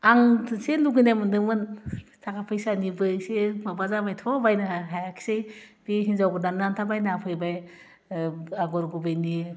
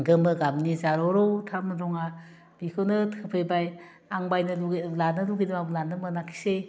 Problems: none marked